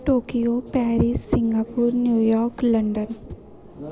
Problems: constant background noise